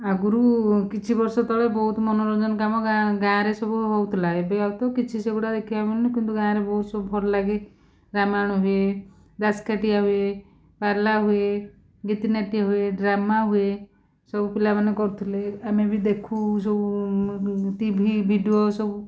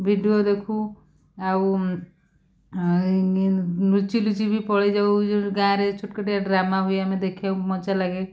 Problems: none marked